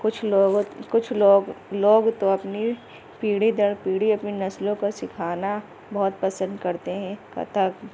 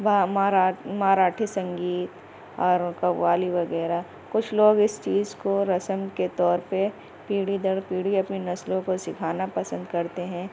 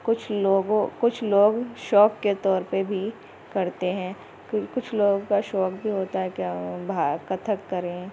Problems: constant background noise, low volume